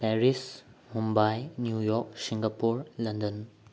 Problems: low volume